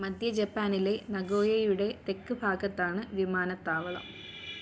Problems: background sounds at intervals